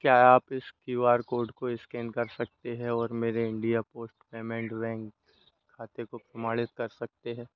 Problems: constant background noise